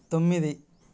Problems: none marked